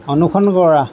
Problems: constant background noise